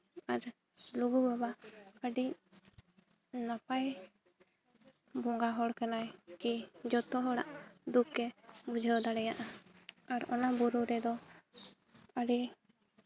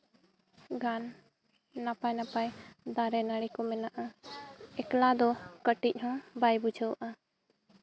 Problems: background sounds at intervals